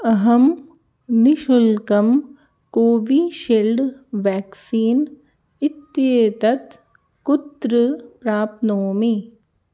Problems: none marked